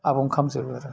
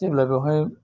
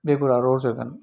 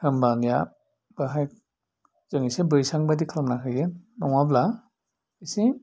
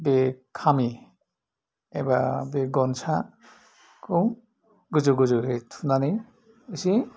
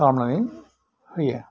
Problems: none marked